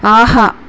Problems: constant background noise